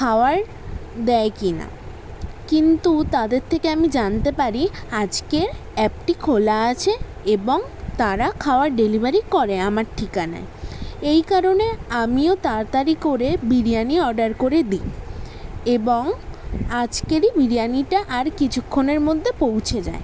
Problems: background sounds at intervals